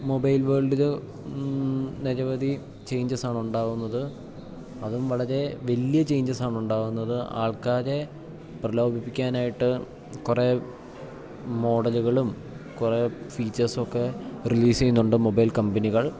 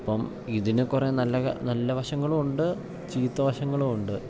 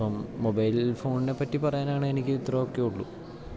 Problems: low volume